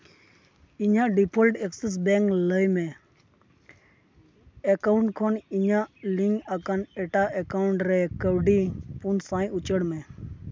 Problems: constant background noise, background conversations at intervals